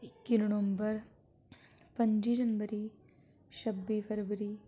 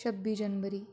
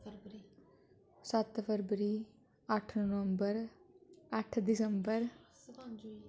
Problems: constant background noise